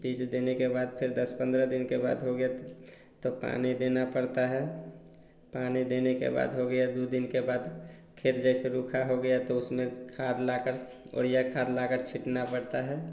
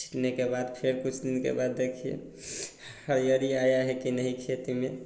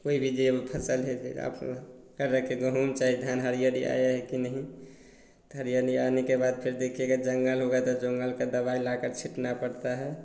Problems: none marked